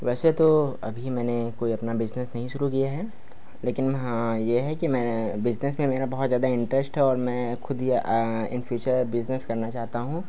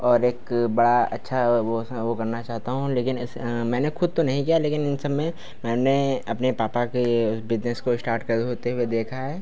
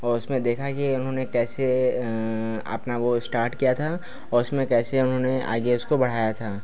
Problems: constant background noise, background conversations at intervals